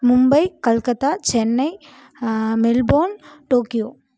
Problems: none marked